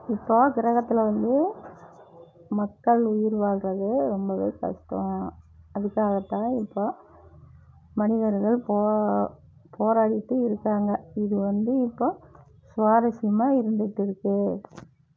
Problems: low volume